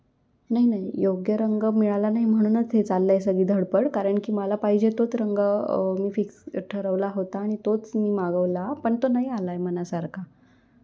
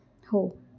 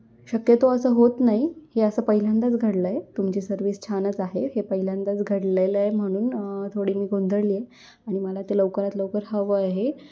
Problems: none marked